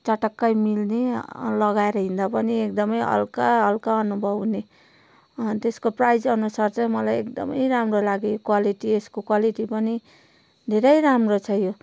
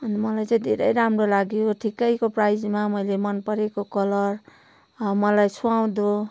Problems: none marked